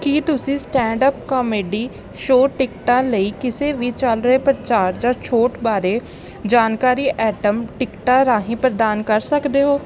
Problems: none marked